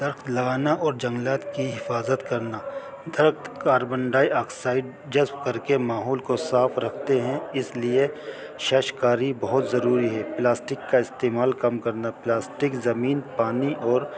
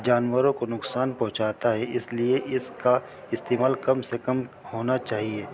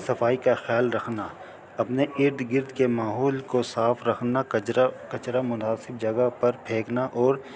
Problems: constant background noise